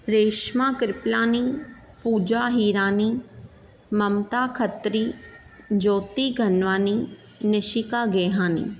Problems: none marked